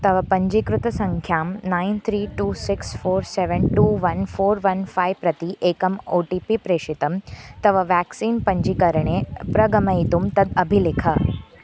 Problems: none marked